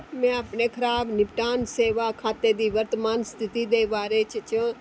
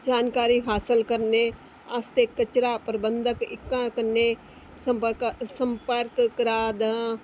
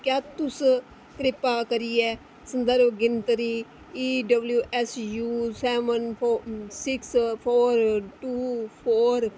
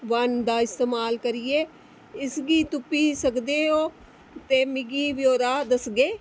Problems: constant background noise